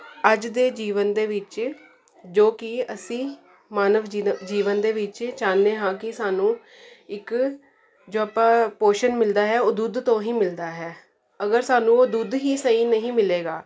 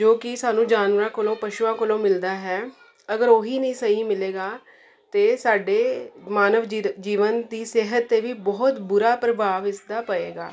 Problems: constant background noise